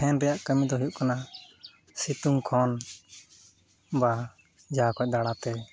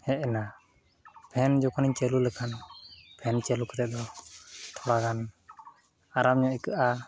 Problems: constant background noise